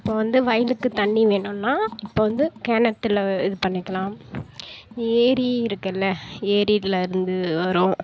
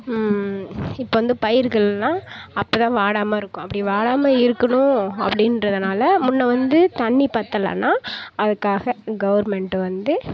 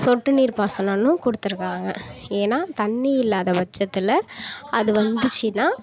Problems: none marked